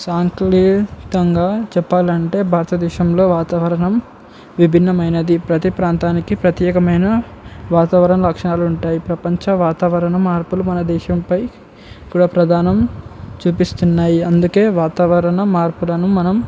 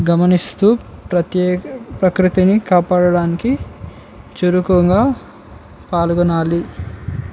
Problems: none marked